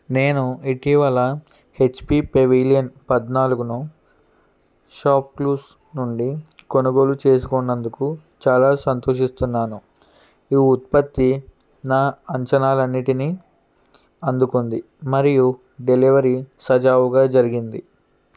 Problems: none marked